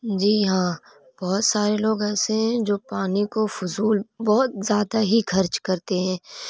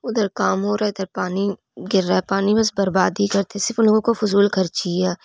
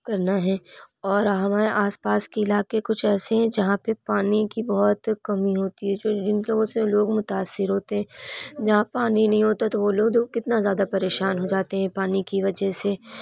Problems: background conversations at intervals